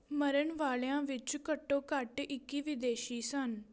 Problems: continuous background conversations